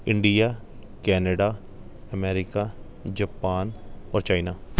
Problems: background sounds at intervals